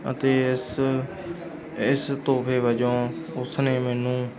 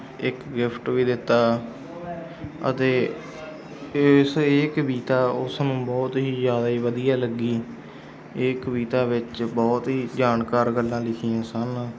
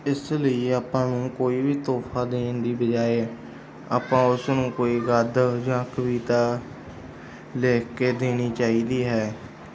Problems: background sounds at intervals